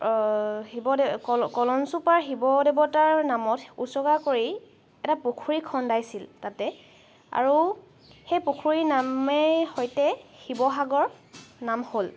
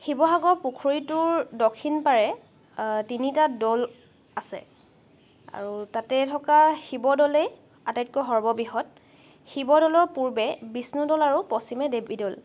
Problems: background sounds at intervals